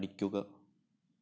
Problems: low volume